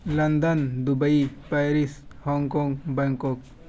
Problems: constant background noise